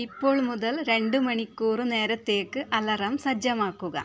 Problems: background sounds at intervals